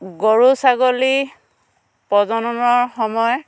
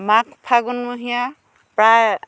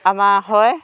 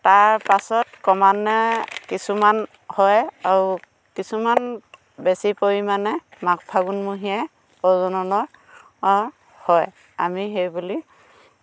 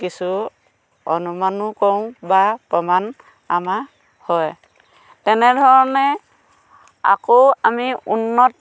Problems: constant background noise